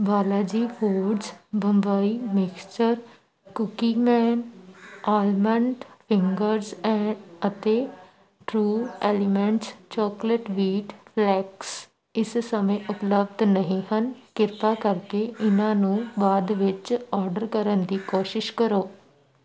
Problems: continuous background conversations